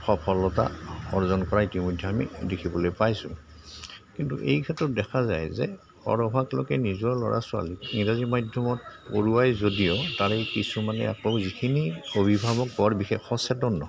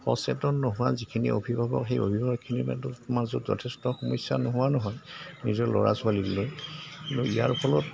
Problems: constant background noise, background conversations at intervals